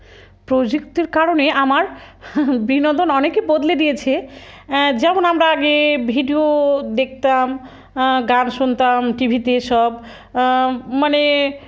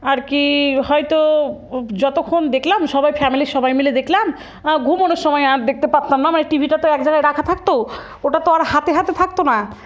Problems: background sounds at intervals